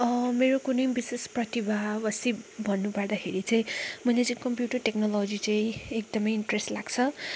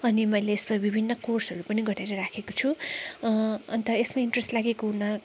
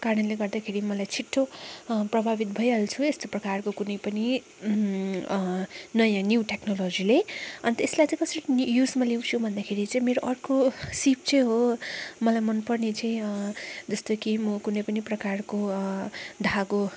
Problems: constant background noise